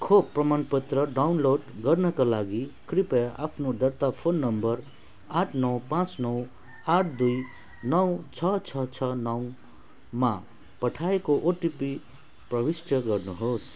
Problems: background sounds at intervals